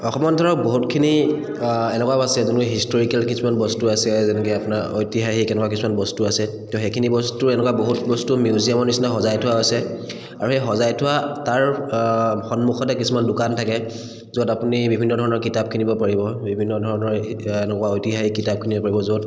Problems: echo